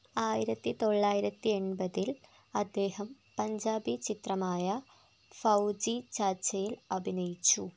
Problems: none marked